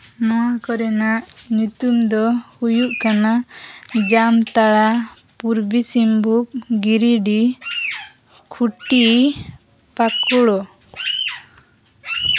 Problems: background sounds at intervals